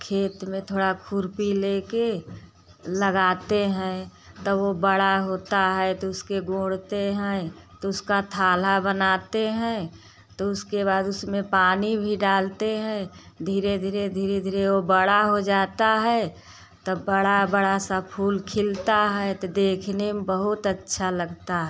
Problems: constant background noise